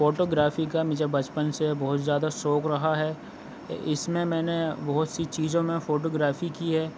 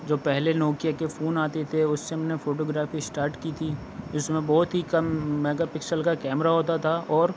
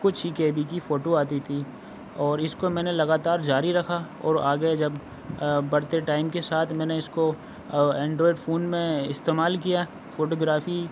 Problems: constant background noise, low volume